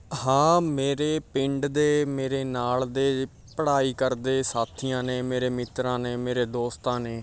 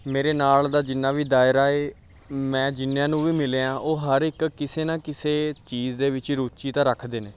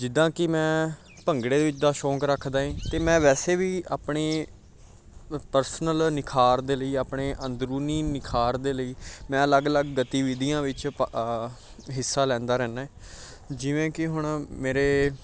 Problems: background sounds at intervals, background conversations at intervals